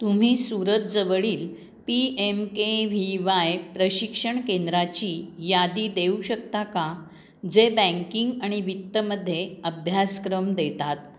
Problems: none marked